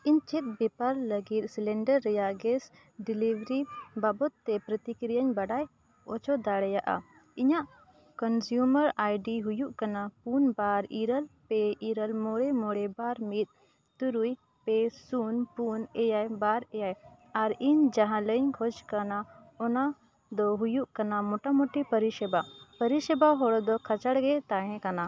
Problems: none marked